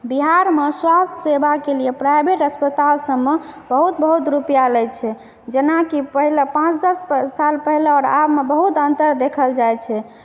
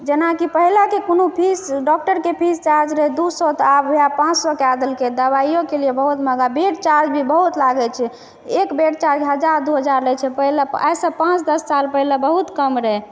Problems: echo